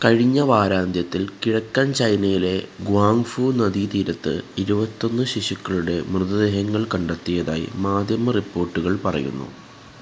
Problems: constant background noise